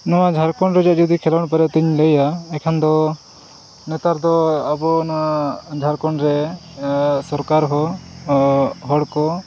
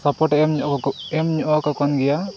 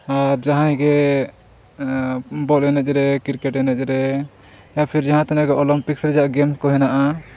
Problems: none marked